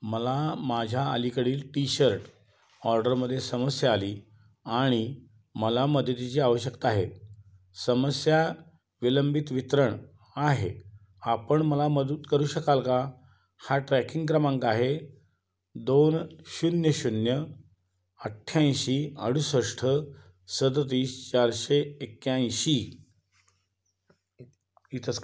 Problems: background sounds at intervals, background conversations at intervals